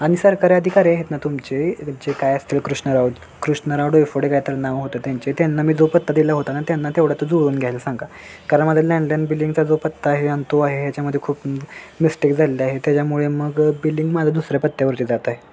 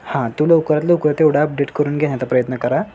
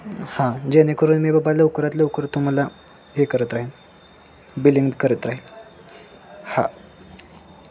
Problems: constant background noise, continuous background conversations